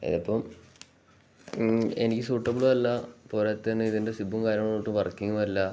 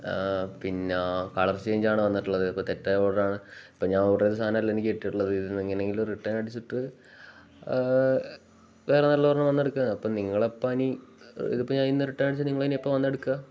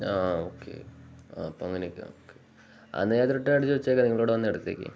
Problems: none marked